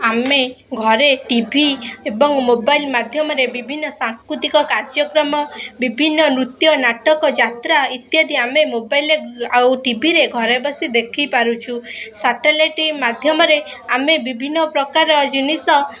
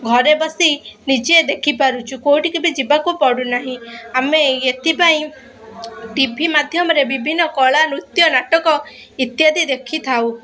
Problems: constant background noise, continuous background conversations